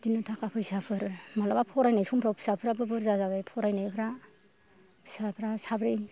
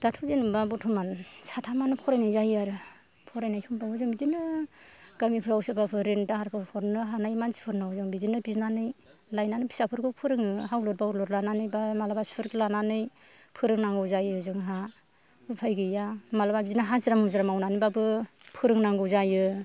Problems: none marked